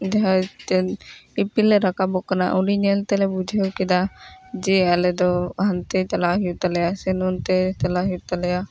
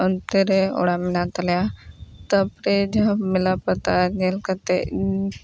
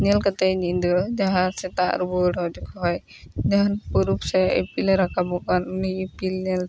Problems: background sounds at intervals